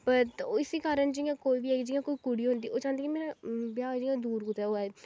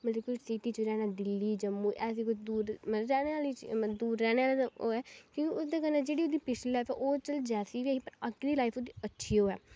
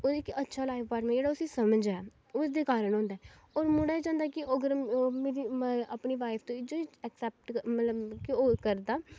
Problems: none marked